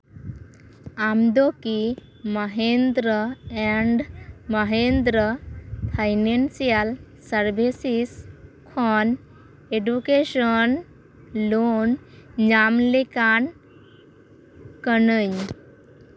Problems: constant background noise